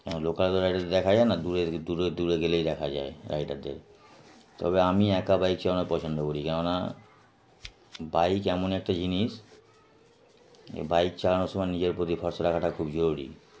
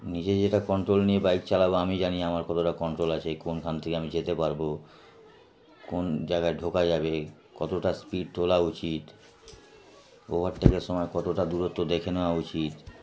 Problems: none marked